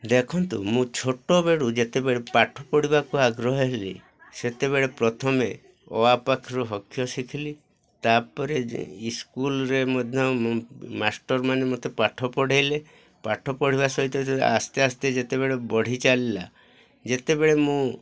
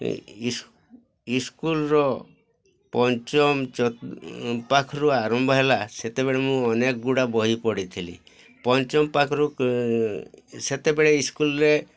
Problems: constant background noise, continuous background conversations